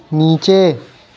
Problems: none marked